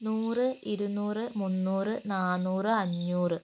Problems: constant background noise